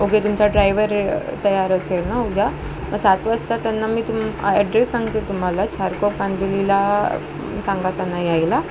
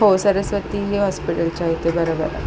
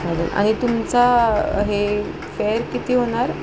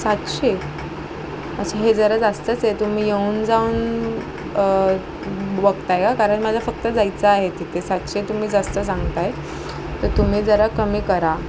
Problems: constant background noise, background conversations at intervals